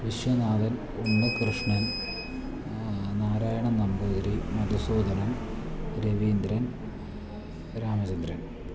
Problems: constant background noise, low volume